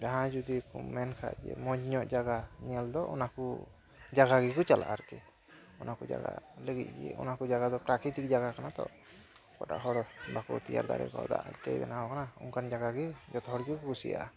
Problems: background sounds at intervals